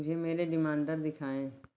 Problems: background sounds at intervals